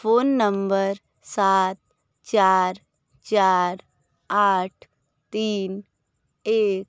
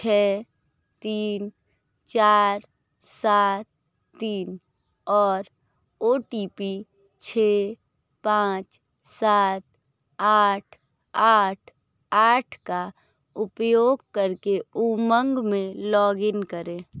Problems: none marked